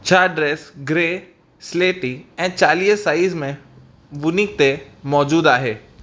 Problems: constant background noise